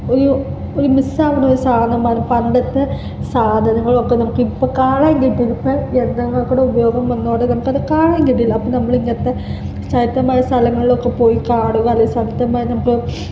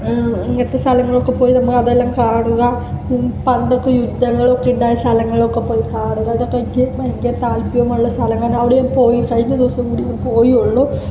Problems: constant background noise, low volume